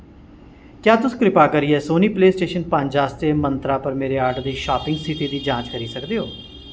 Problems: constant background noise